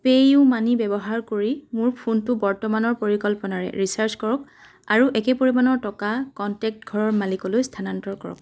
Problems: background sounds at intervals